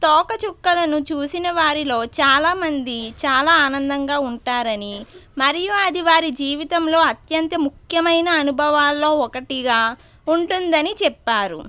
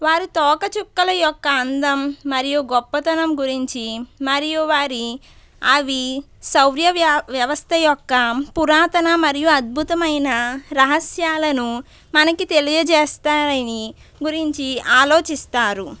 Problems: none marked